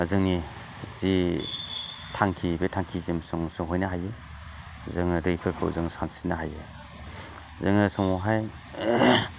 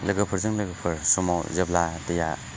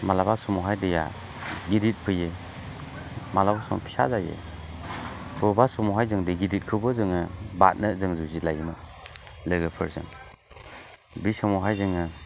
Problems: constant background noise